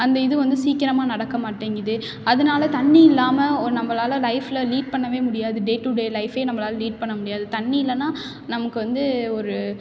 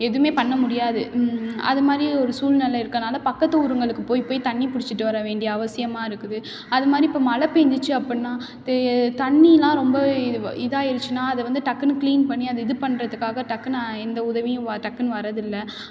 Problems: background sounds at intervals